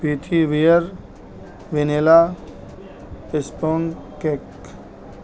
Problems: constant background noise